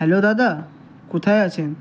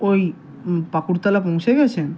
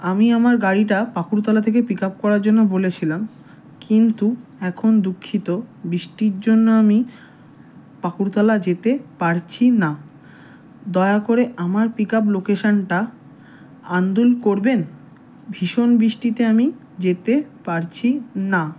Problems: background sounds at intervals